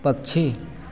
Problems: none marked